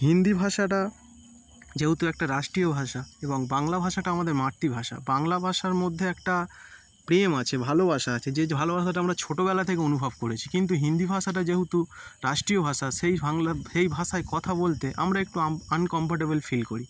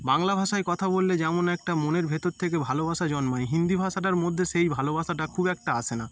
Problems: constant background noise